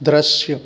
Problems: none marked